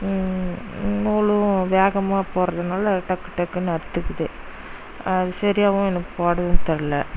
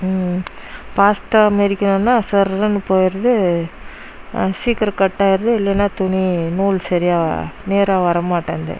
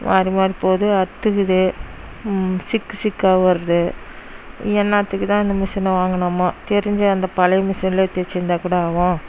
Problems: background sounds at intervals